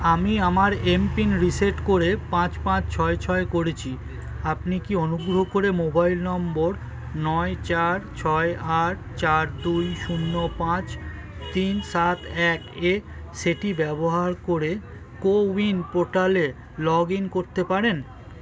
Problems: constant background noise, continuous background conversations